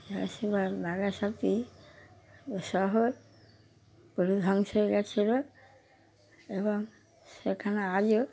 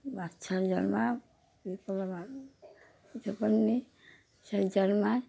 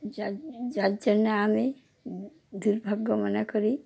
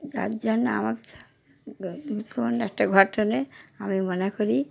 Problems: constant background noise